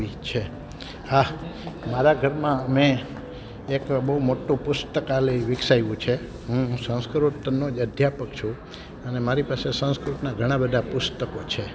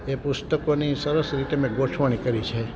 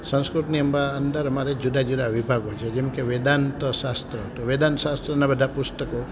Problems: none marked